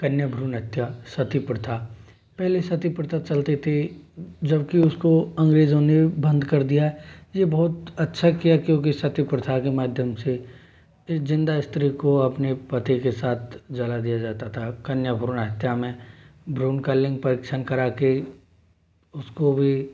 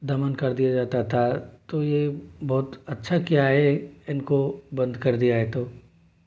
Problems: low volume